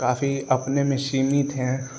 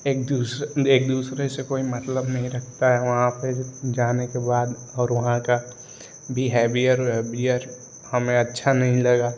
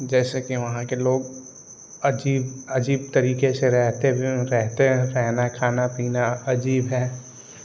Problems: constant background noise